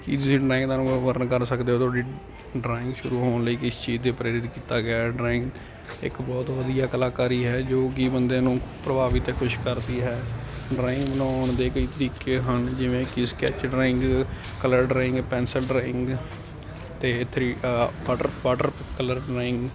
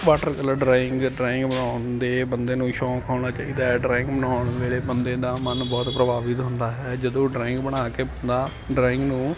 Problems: constant background noise